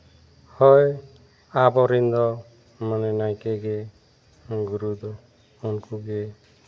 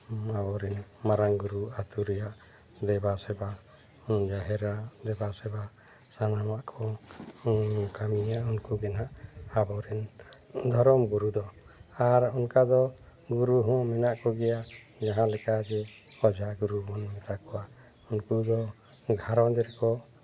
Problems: background sounds at intervals